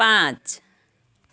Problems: none marked